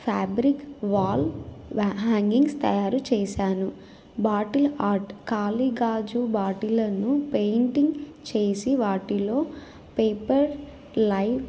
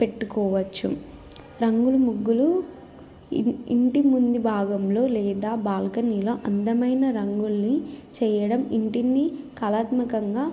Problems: constant background noise